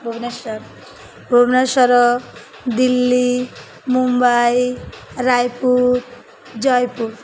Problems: constant background noise